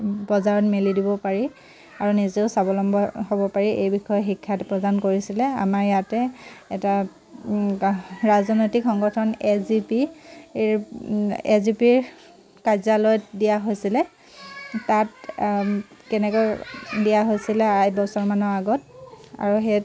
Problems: constant background noise